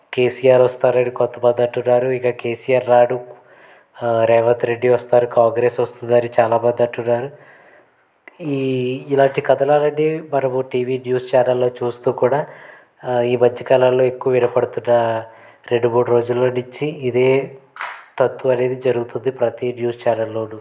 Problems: background sounds at intervals